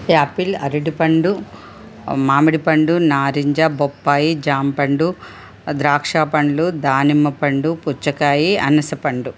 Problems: constant background noise